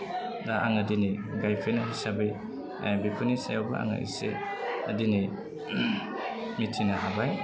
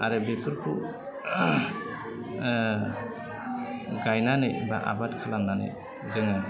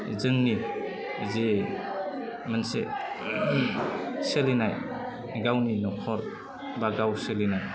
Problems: low volume